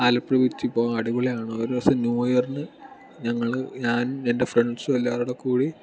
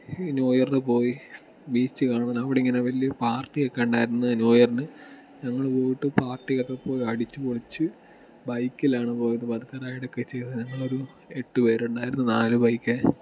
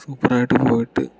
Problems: background sounds at intervals